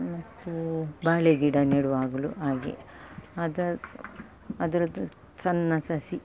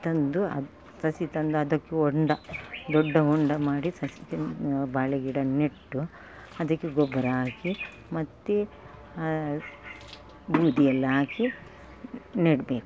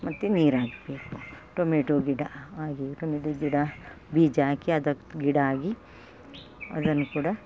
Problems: background sounds at intervals